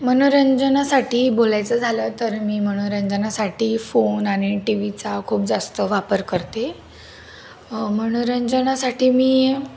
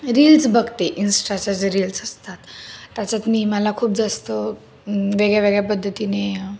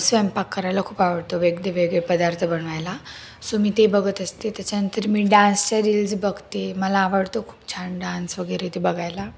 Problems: constant background noise, background conversations at intervals